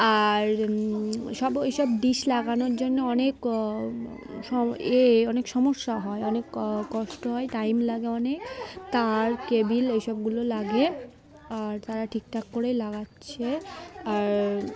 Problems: constant background noise, continuous background conversations